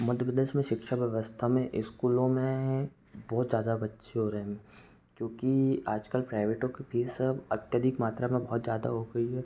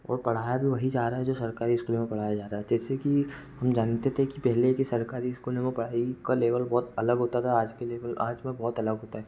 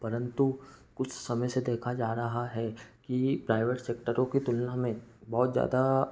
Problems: background sounds at intervals, background conversations at intervals